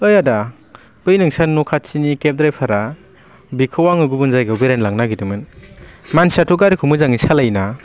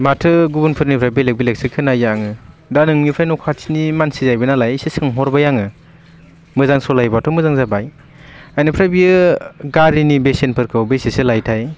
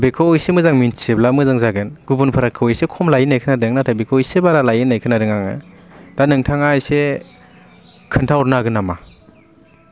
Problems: constant background noise